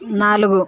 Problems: continuous background conversations